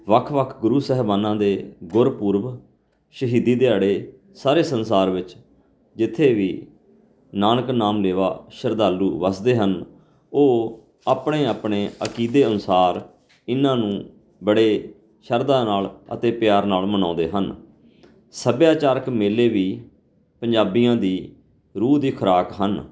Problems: none marked